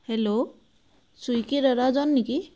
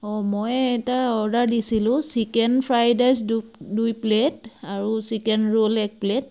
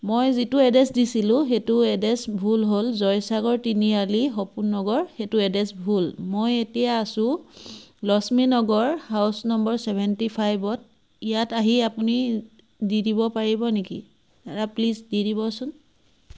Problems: none marked